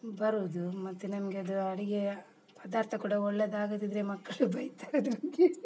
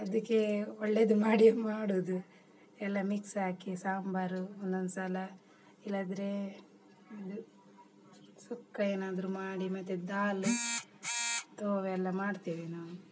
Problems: background sounds at intervals, background conversations at intervals